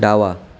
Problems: background sounds at intervals